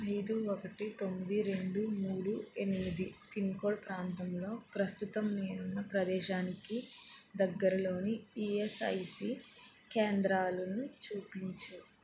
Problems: low volume